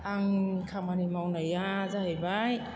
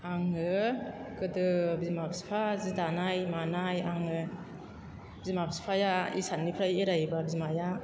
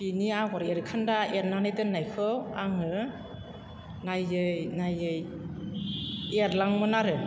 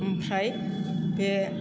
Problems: background sounds at intervals